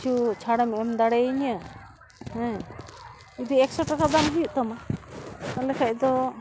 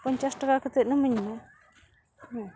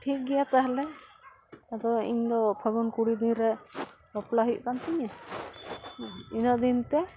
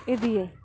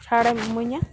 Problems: constant background noise